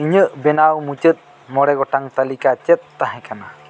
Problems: constant background noise